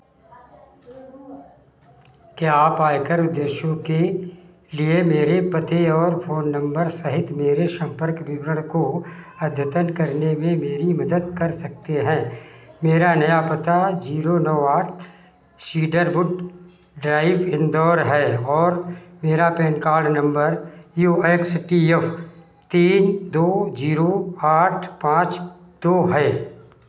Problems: constant background noise